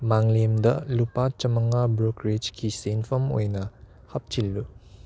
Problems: none marked